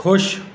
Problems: background conversations at intervals